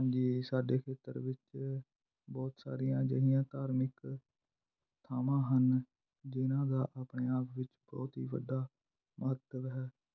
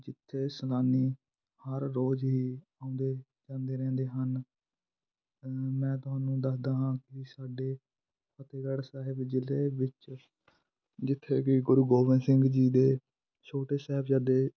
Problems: background sounds at intervals